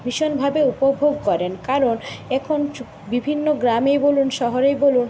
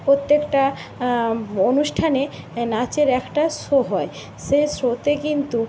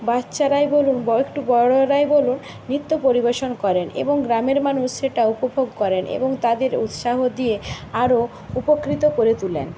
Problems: constant background noise